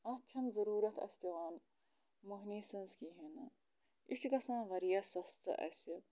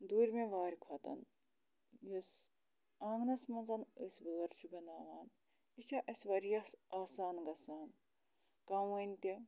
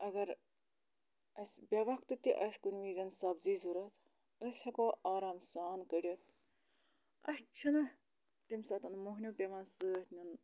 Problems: low volume